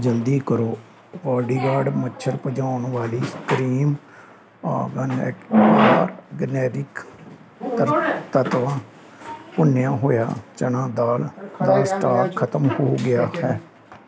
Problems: constant background noise, background conversations at intervals